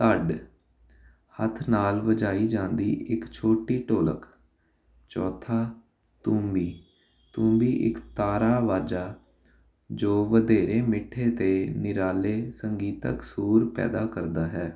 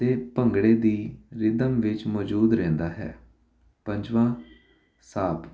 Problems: constant background noise